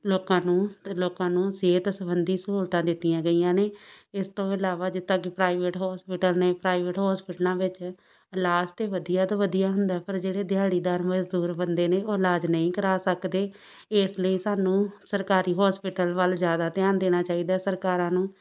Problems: background sounds at intervals